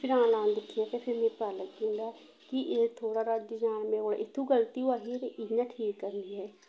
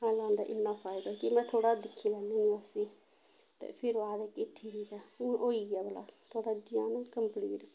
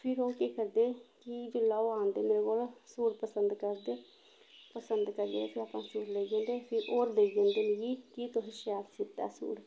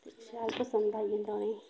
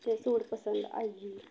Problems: constant background noise, low volume